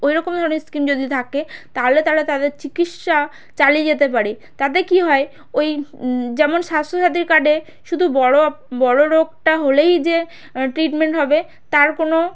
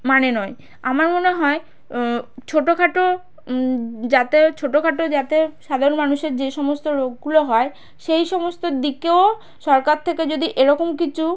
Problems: background sounds at intervals